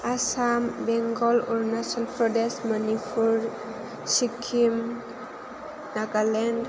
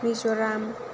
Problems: constant background noise